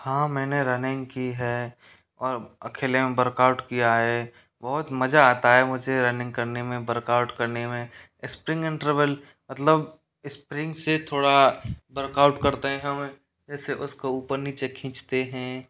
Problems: background sounds at intervals